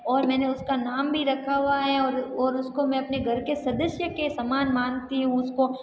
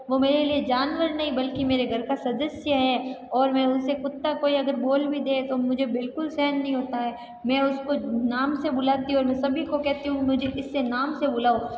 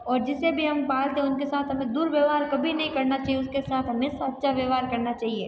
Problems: none marked